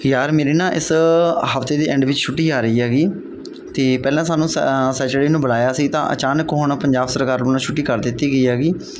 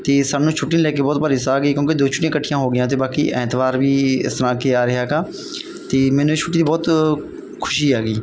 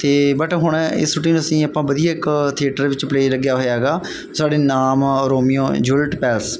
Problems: background sounds at intervals